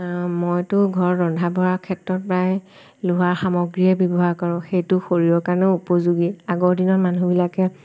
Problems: constant background noise